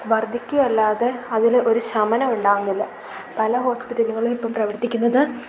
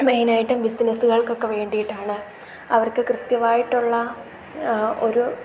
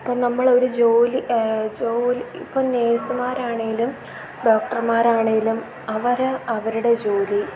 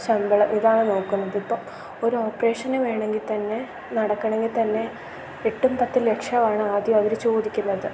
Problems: none marked